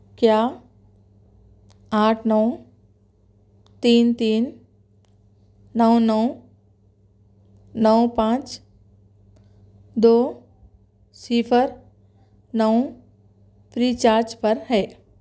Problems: none marked